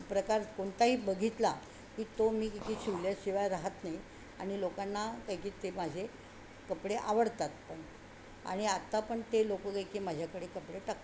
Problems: none marked